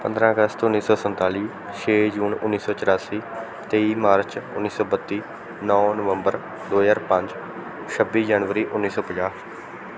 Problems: background sounds at intervals